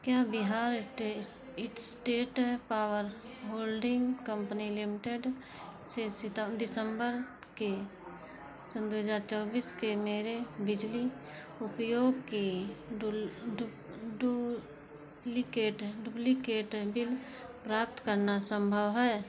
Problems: background sounds at intervals